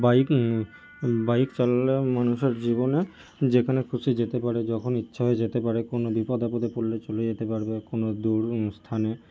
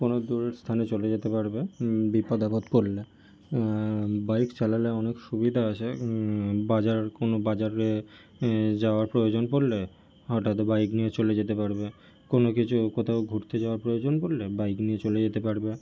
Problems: none marked